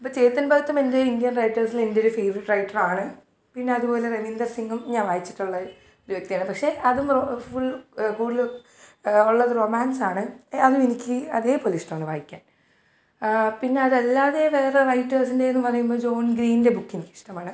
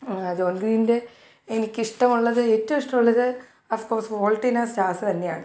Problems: none marked